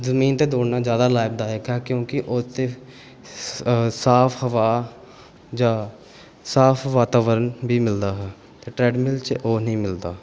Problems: background sounds at intervals